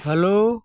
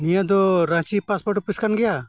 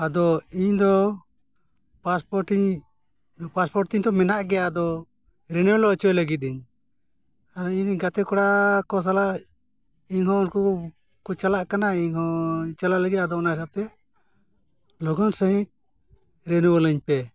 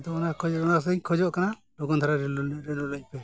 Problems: none marked